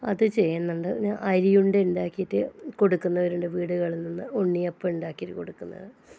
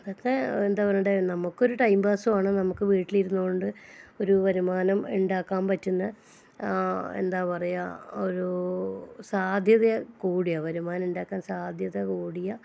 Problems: low volume